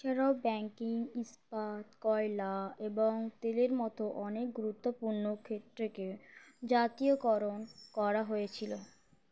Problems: constant background noise